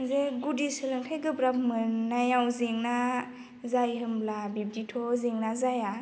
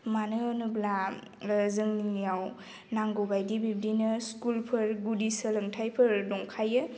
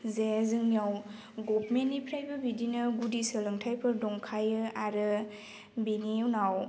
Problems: constant background noise